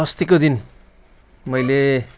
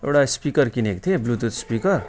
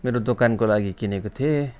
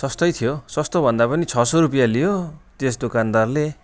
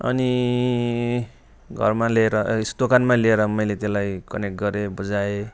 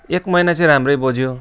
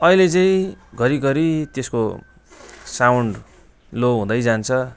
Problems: constant background noise, continuous background conversations